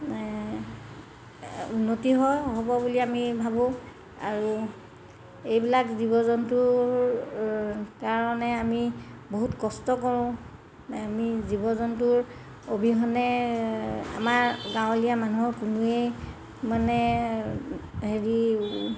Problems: constant background noise